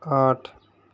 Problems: constant background noise